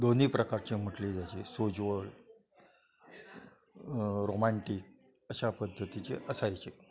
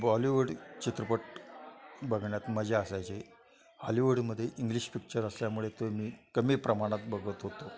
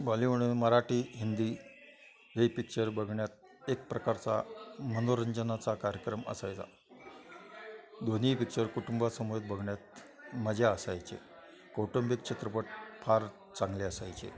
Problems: constant background noise, continuous background conversations